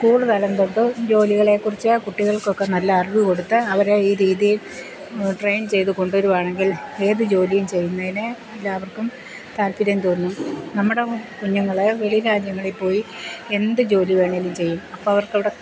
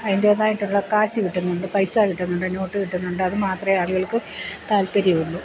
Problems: constant background noise